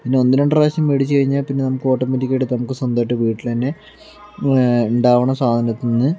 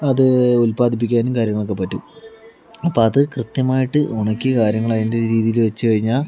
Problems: background sounds at intervals, background conversations at intervals